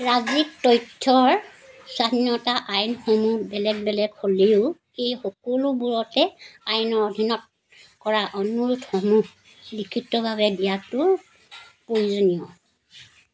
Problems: constant background noise